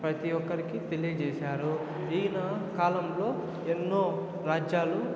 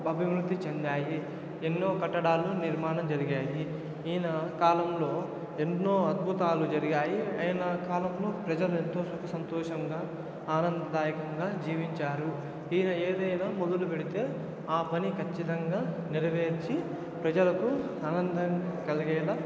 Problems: constant background noise, continuous background conversations